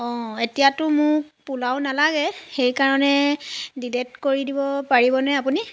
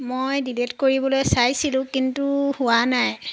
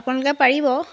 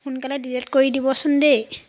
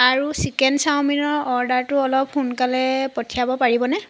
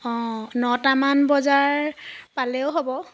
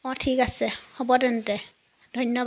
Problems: constant background noise